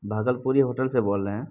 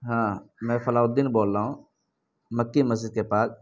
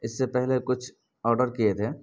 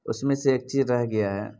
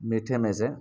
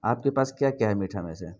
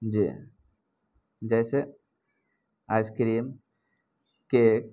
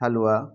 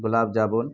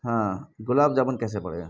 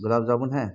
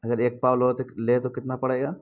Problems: background sounds at intervals, low volume